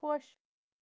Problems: constant background noise